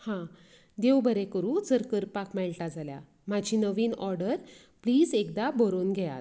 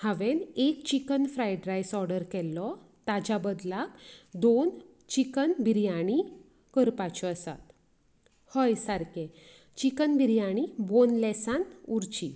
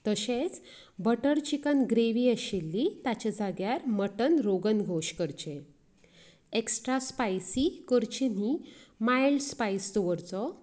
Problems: background conversations at intervals